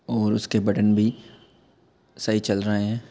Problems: constant background noise